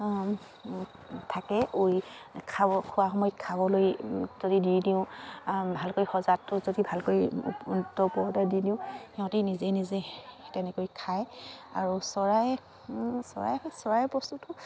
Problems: none marked